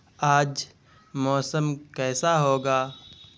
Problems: constant background noise